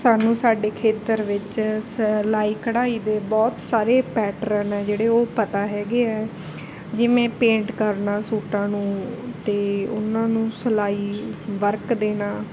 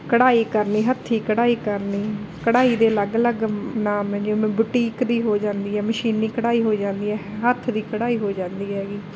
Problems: background conversations at intervals